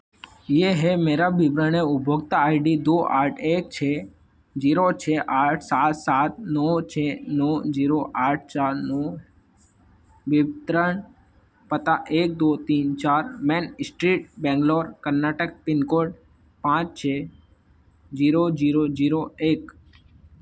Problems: constant background noise